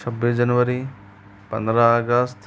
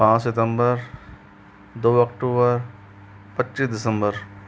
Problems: constant background noise